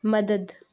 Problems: none marked